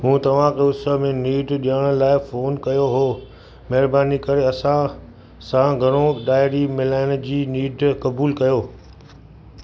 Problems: constant background noise